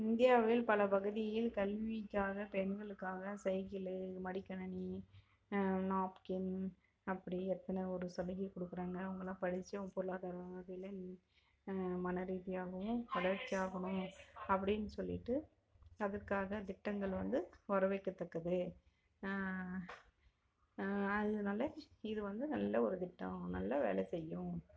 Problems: low volume